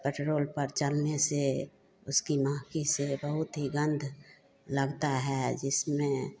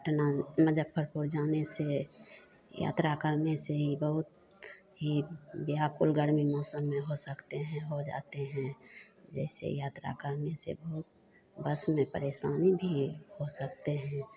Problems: none marked